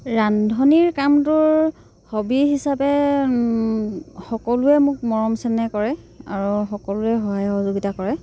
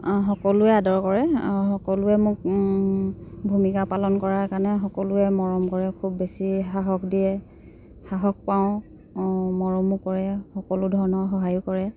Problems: background sounds at intervals